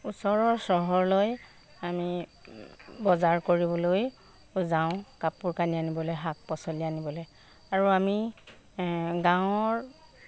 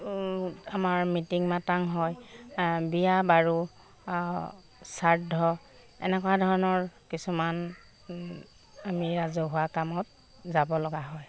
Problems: constant background noise